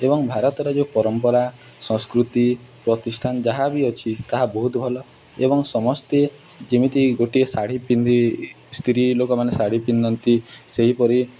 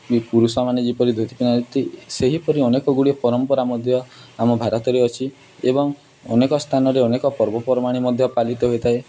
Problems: none marked